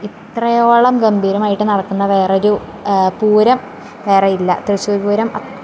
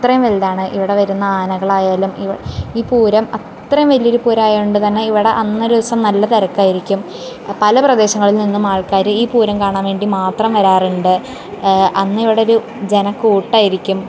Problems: constant background noise